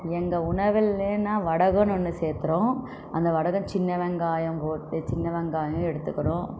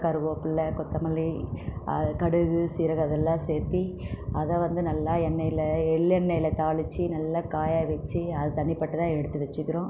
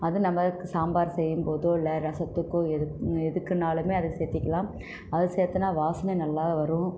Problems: none marked